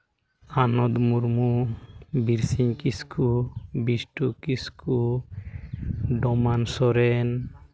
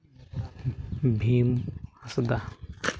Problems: background sounds at intervals